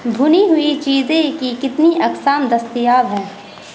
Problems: constant background noise